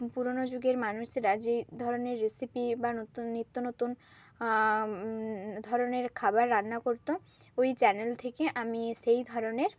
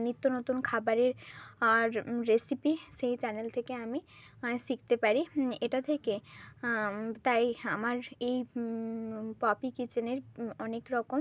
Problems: none marked